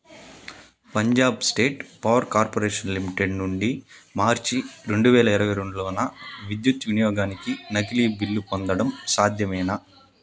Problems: background sounds at intervals